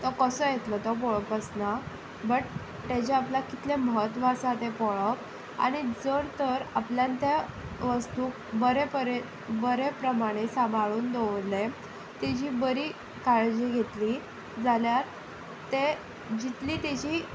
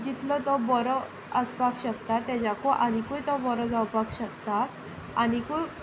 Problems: background sounds at intervals